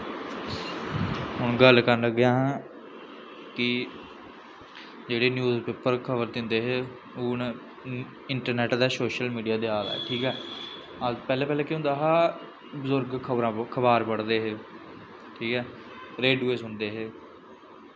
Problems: constant background noise